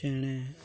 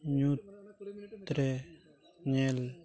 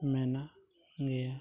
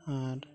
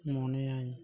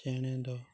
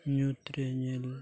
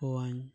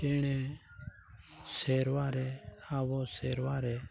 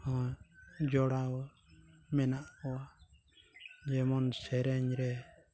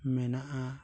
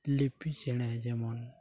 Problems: background sounds at intervals, background conversations at intervals